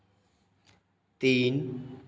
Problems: none marked